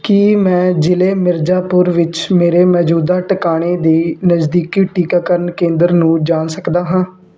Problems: background sounds at intervals